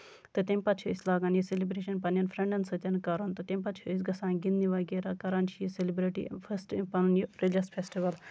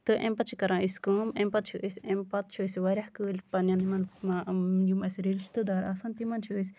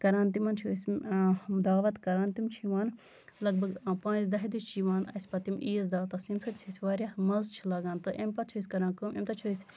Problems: constant background noise